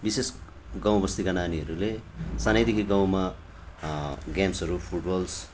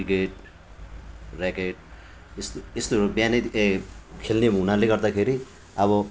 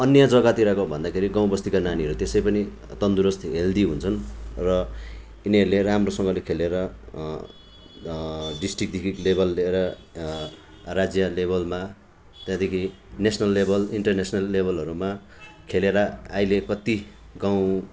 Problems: constant background noise